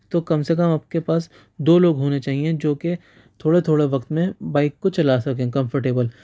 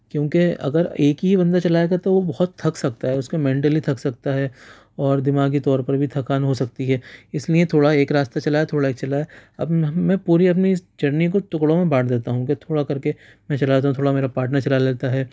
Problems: none marked